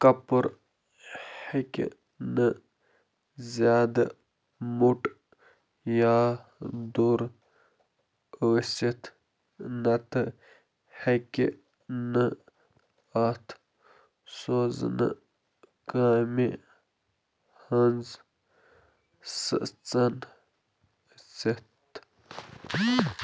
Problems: none marked